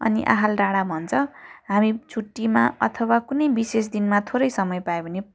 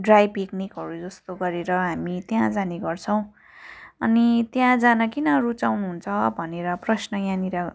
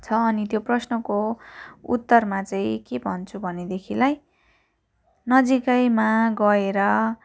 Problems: none marked